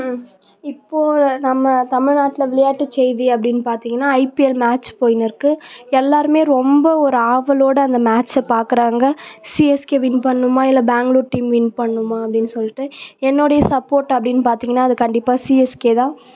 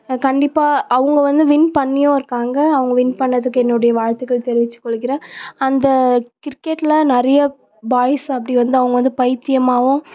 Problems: none marked